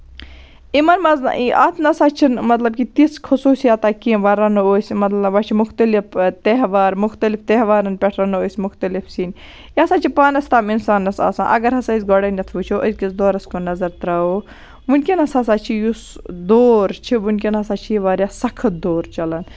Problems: none marked